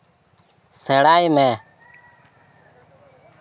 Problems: none marked